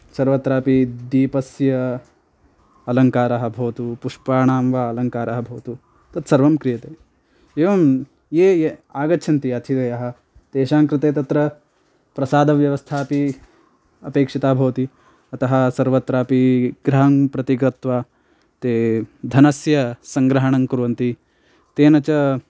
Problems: none marked